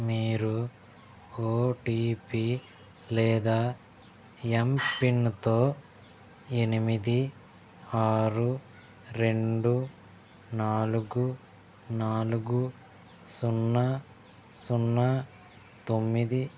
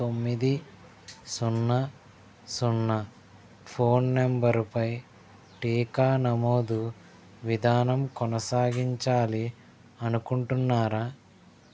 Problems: background sounds at intervals